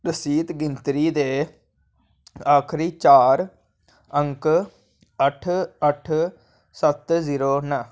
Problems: none marked